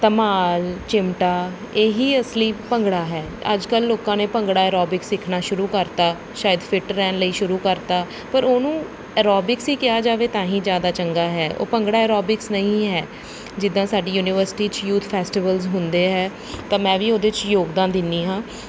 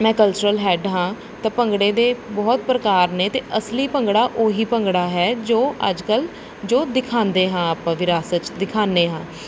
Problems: none marked